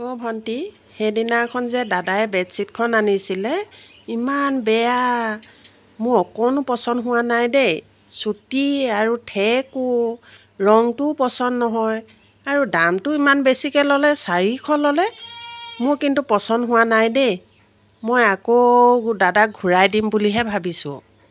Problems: constant background noise